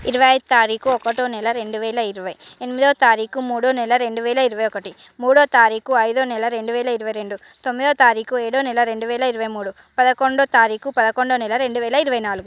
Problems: constant background noise